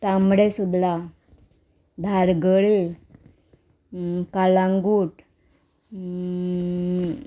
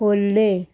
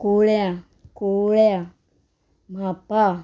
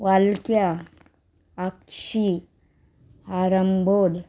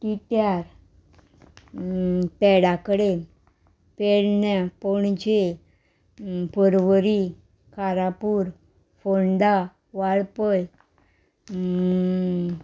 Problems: none marked